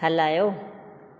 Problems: echo